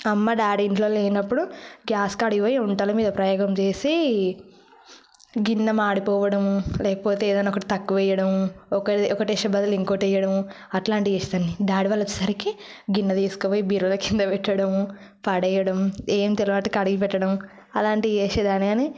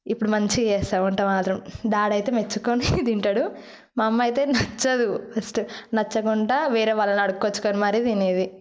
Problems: background sounds at intervals